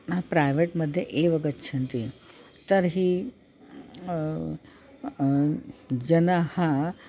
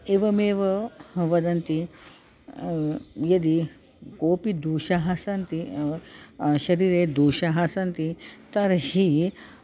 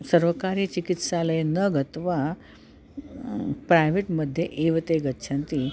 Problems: none marked